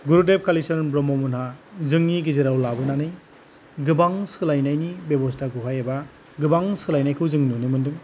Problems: none marked